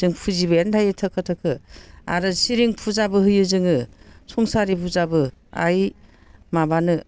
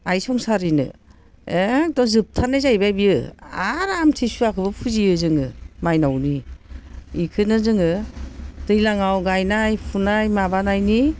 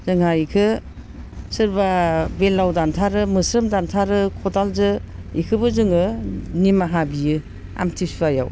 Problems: constant background noise